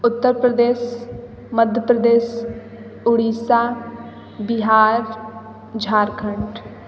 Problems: constant background noise, background conversations at intervals